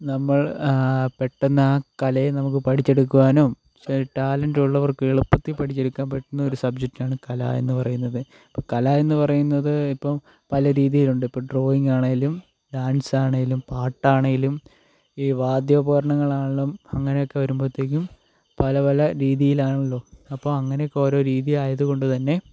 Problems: none marked